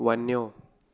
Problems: none marked